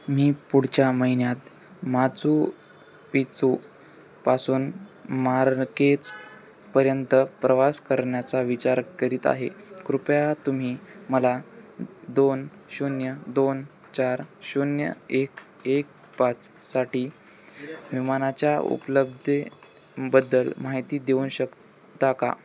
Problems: none marked